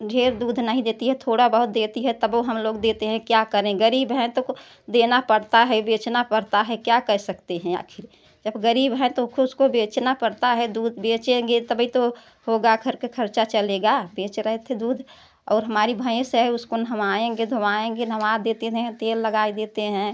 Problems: none marked